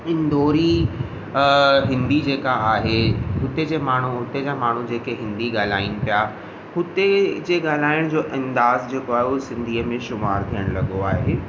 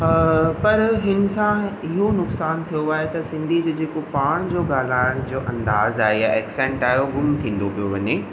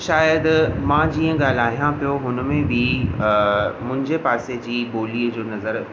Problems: constant background noise, echo